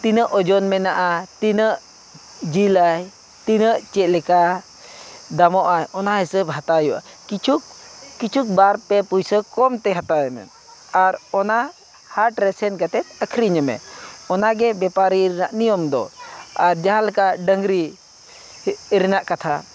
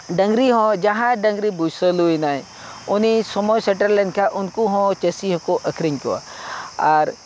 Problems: none marked